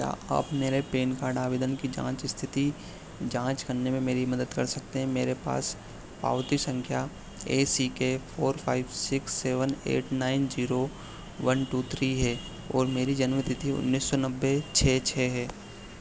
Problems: background sounds at intervals